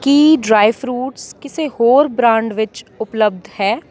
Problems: continuous background conversations